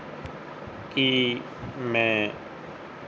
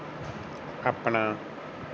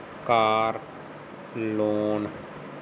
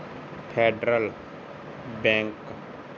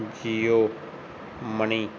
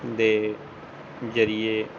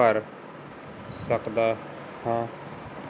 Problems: constant background noise